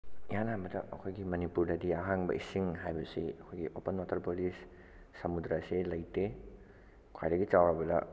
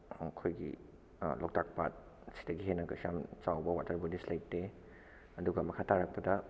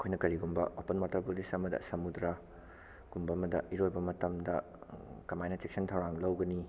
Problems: low volume